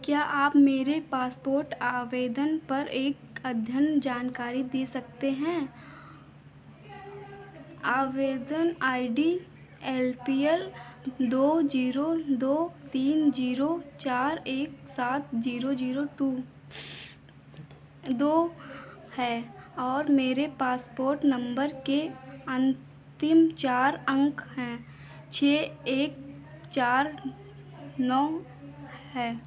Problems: background conversations at intervals